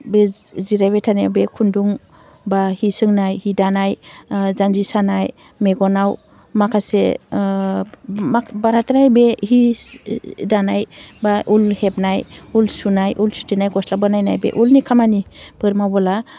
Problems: none marked